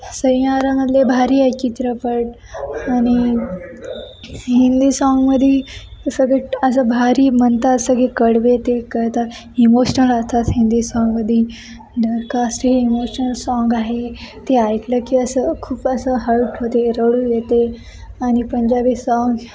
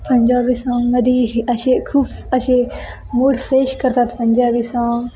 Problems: constant background noise, continuous background conversations